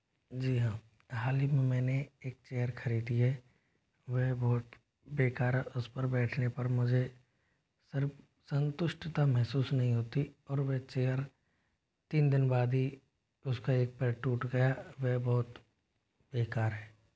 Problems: none marked